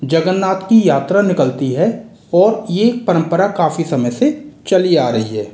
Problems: constant background noise